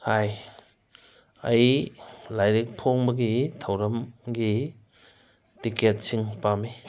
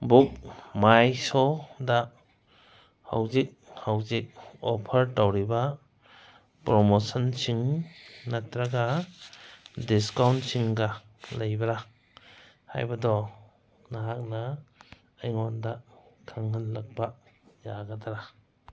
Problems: none marked